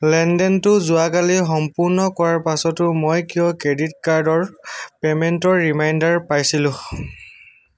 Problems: none marked